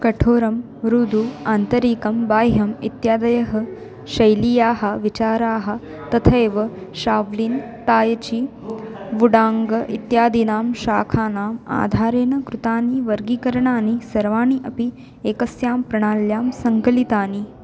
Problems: constant background noise